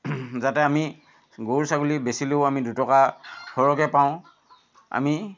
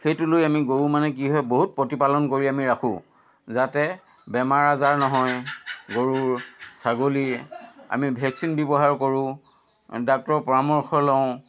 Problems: constant background noise